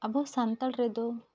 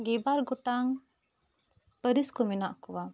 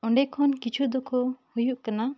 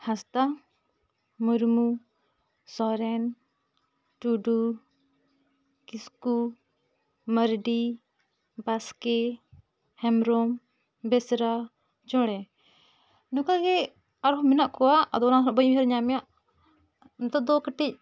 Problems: none marked